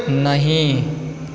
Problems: background conversations at intervals